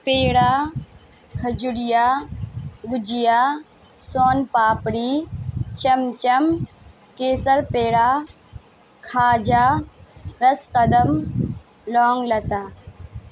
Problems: constant background noise